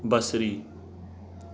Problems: constant background noise